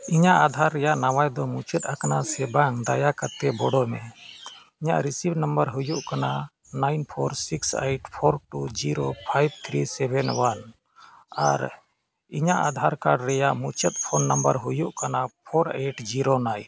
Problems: background sounds at intervals